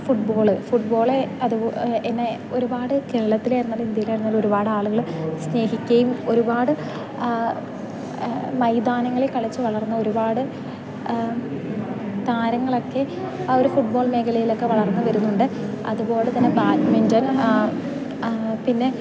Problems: constant background noise, low volume